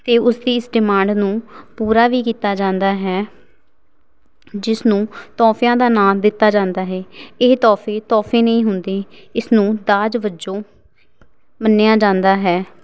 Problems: background sounds at intervals